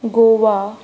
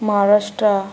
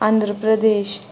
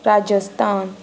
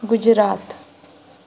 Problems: constant background noise